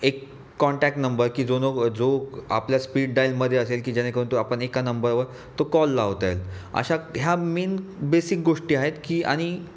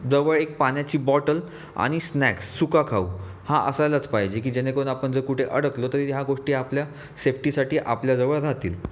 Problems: none marked